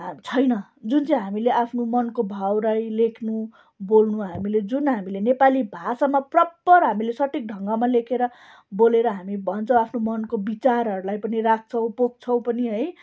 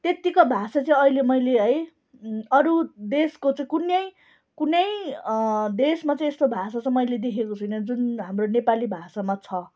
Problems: constant background noise